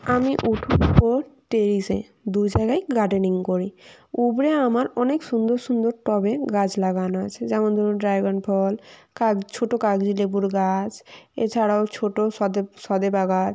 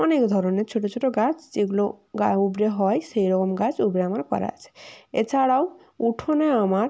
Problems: none marked